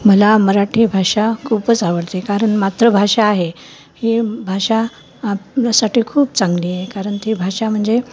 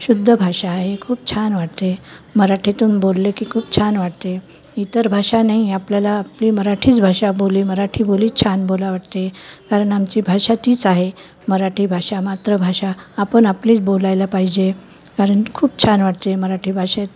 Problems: constant background noise